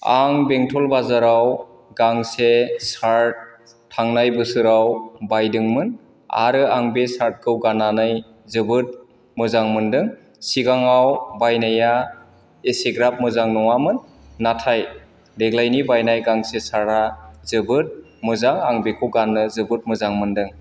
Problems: none marked